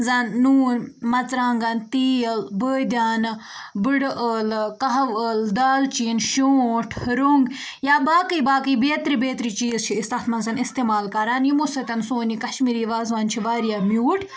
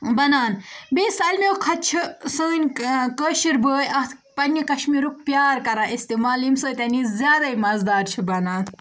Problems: background conversations at intervals